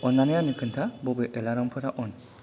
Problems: low volume